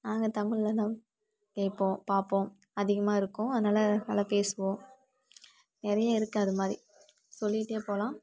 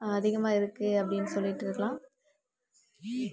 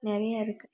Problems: background conversations at intervals